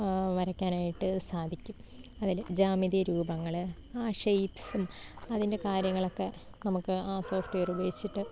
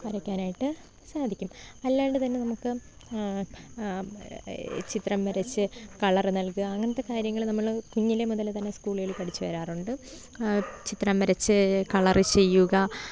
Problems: low volume